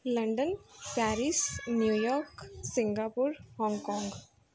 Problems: background sounds at intervals